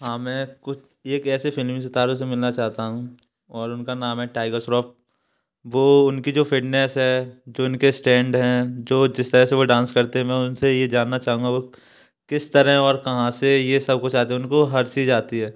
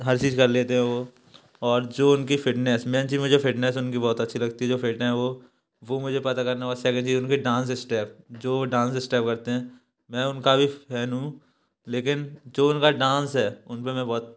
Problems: background sounds at intervals